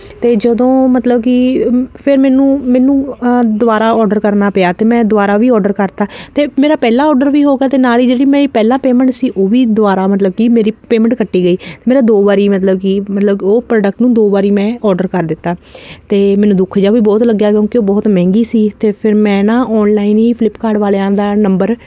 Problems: none marked